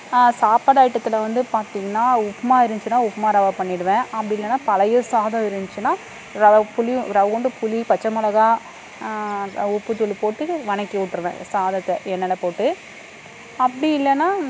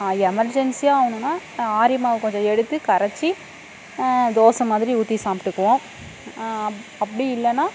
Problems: constant background noise